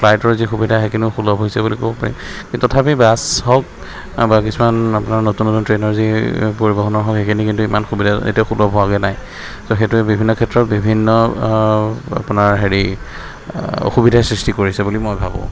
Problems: constant background noise, background conversations at intervals